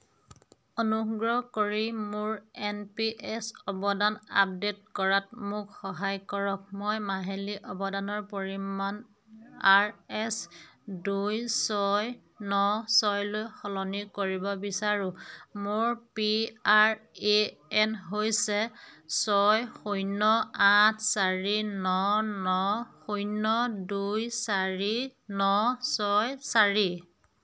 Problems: none marked